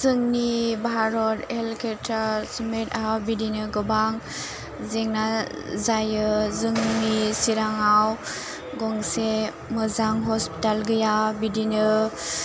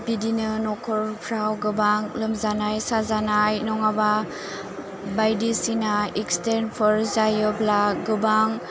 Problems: none marked